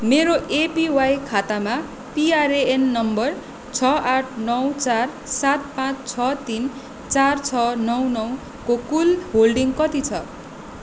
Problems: constant background noise